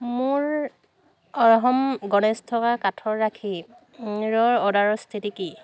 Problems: constant background noise, background conversations at intervals